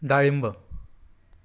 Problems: background sounds at intervals